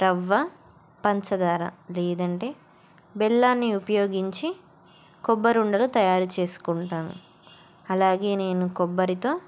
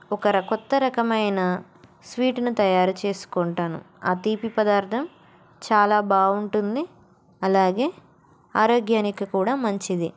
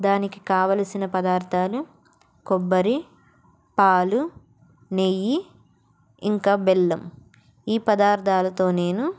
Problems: none marked